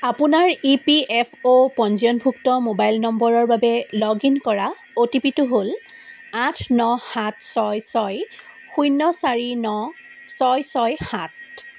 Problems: none marked